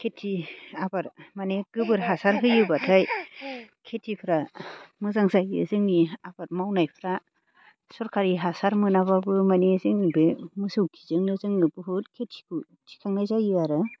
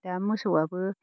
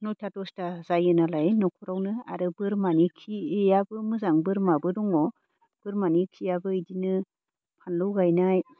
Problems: background sounds at intervals